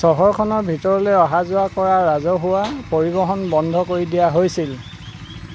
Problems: constant background noise